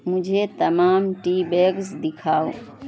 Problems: constant background noise